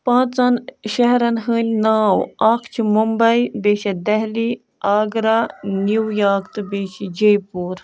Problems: background sounds at intervals